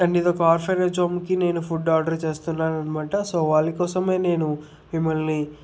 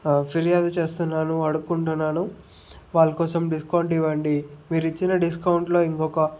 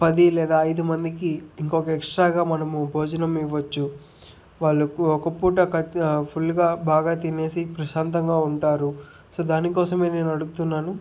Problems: none marked